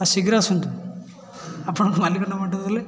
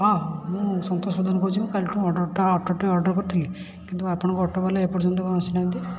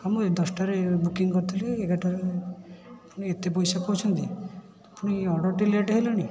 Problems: constant background noise, continuous background conversations